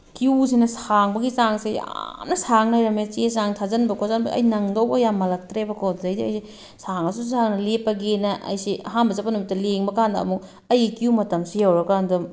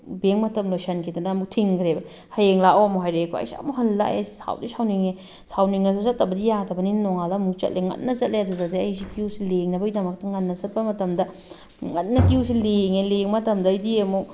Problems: none marked